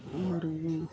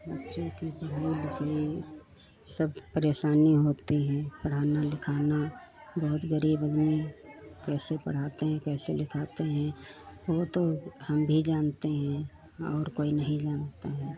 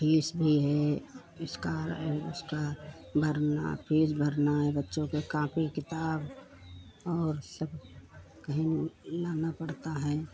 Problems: none marked